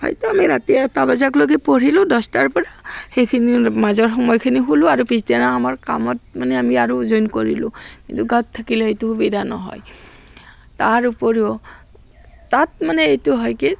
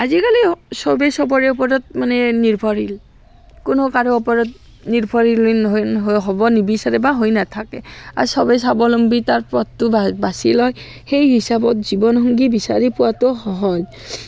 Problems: background sounds at intervals, background conversations at intervals